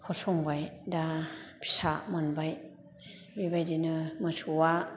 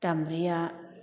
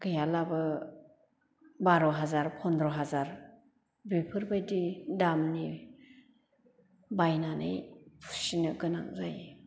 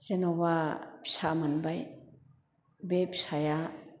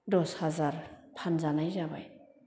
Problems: none marked